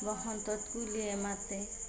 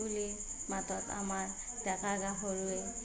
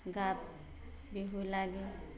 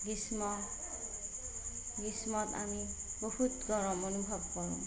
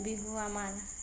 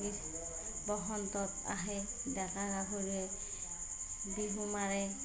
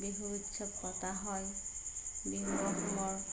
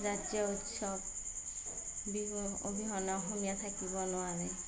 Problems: background sounds at intervals, background conversations at intervals, low volume